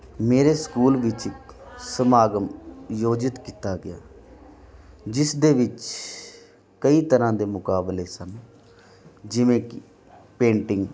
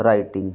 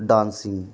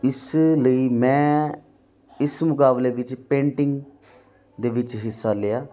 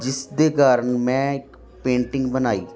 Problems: constant background noise